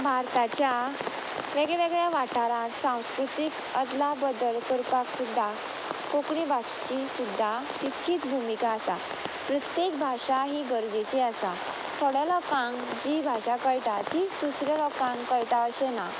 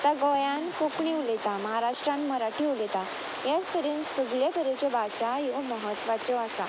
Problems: constant background noise